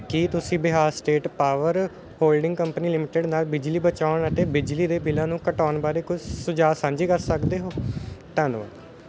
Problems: none marked